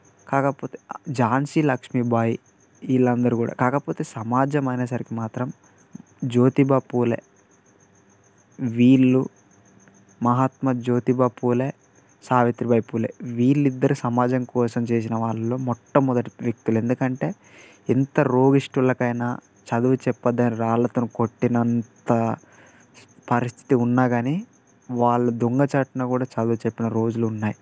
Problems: none marked